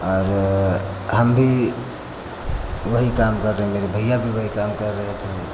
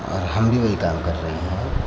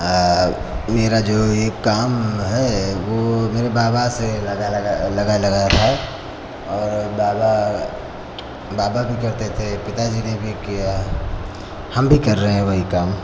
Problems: constant background noise